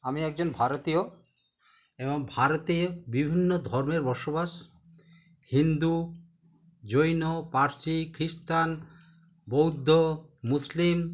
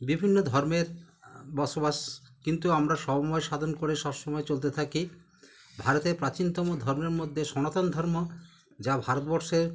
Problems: constant background noise